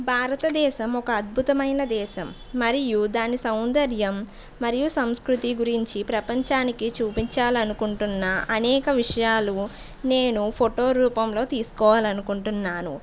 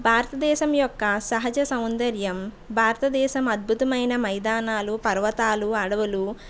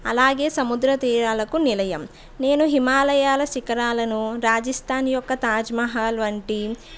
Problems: background sounds at intervals, background conversations at intervals